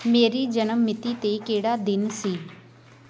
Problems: none marked